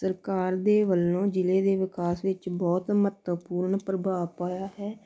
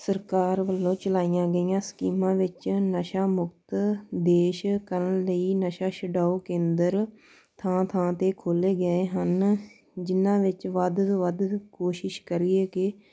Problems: none marked